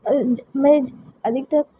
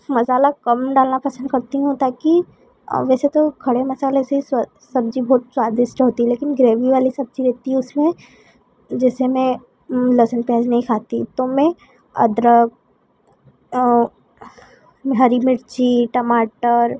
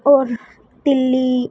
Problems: constant background noise